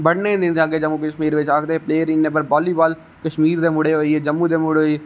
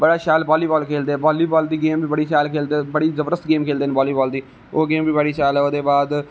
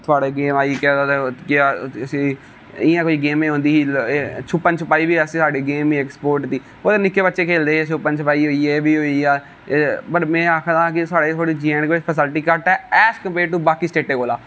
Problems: none marked